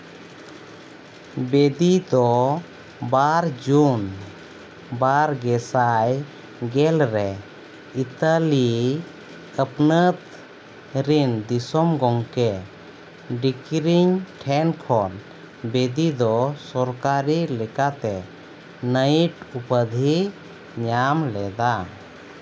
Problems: constant background noise